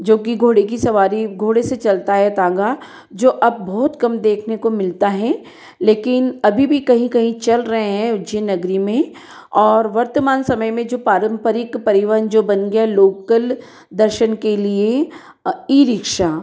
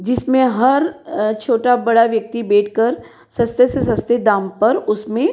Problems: echo